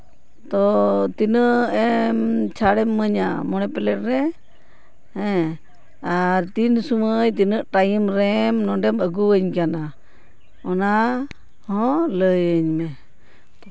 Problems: constant background noise